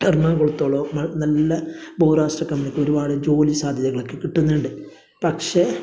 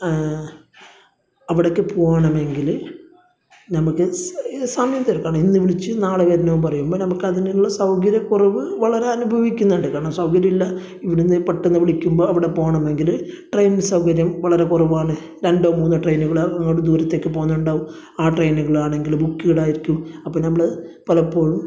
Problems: none marked